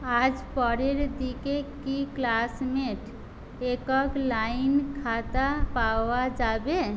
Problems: constant background noise